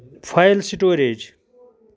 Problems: background conversations at intervals